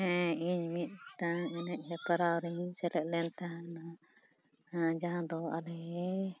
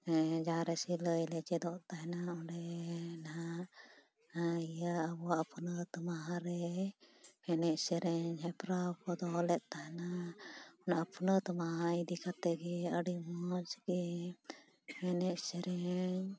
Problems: none marked